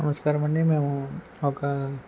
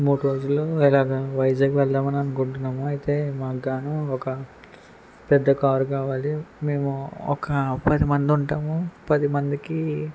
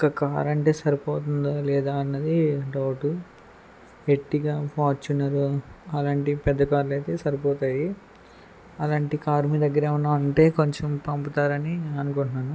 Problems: background conversations at intervals